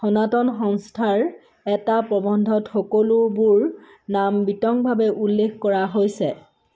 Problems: background sounds at intervals